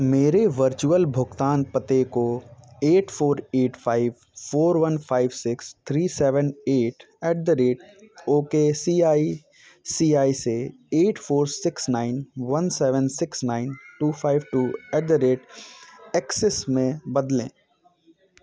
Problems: none marked